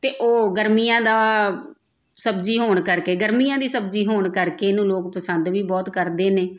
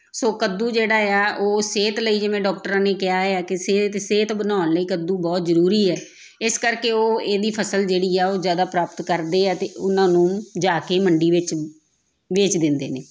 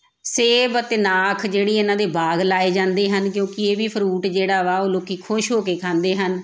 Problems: background sounds at intervals